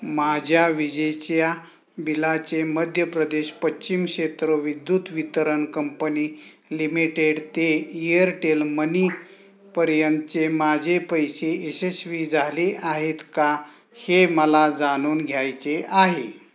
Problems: constant background noise